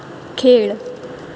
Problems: constant background noise